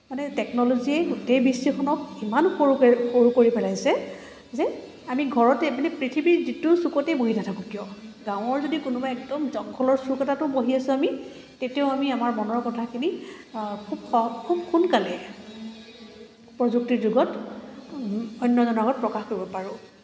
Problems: background sounds at intervals